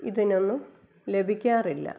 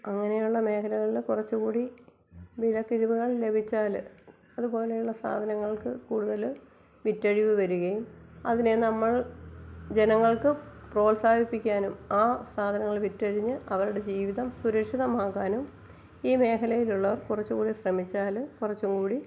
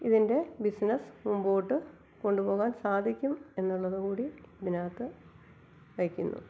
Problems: low volume